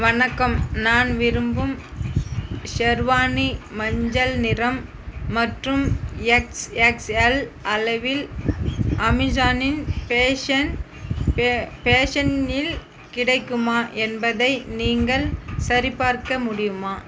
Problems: constant background noise